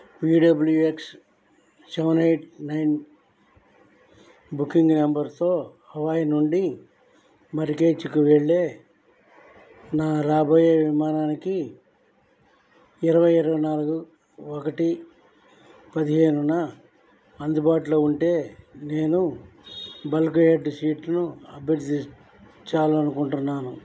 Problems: low volume